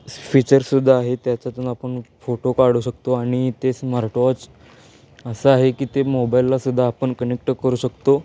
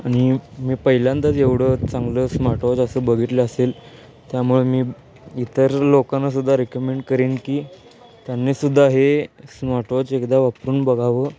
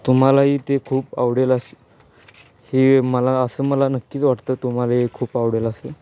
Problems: constant background noise, background conversations at intervals